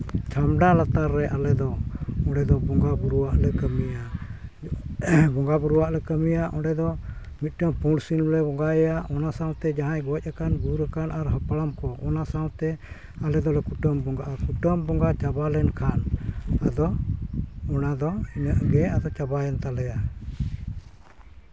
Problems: background sounds at intervals